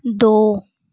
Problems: none marked